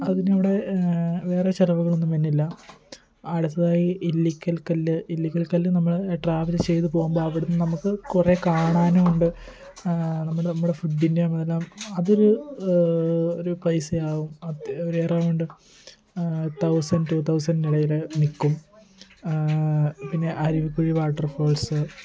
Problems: constant background noise, background conversations at intervals